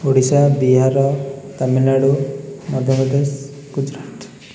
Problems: none marked